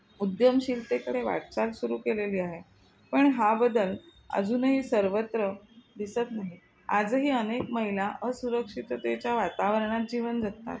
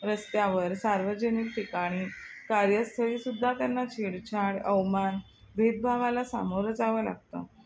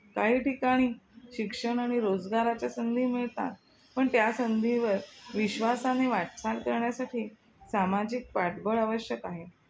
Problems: constant background noise